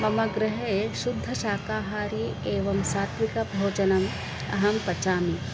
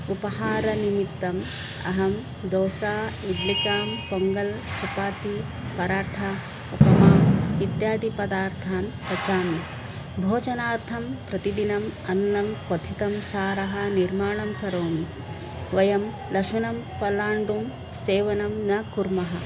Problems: constant background noise